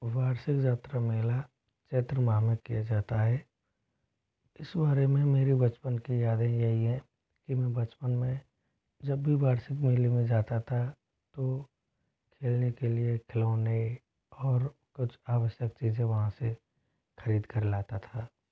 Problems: constant background noise